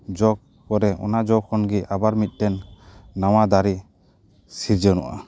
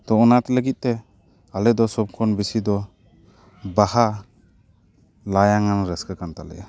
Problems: background sounds at intervals, background conversations at intervals